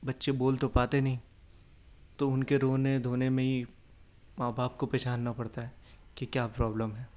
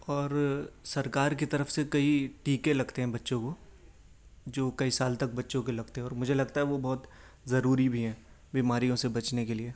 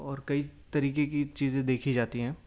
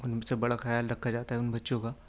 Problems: none marked